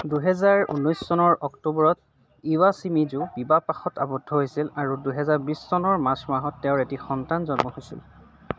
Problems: none marked